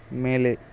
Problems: none marked